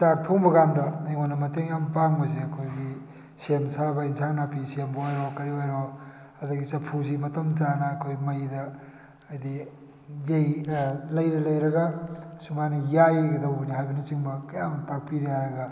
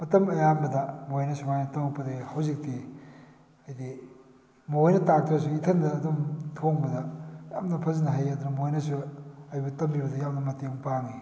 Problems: none marked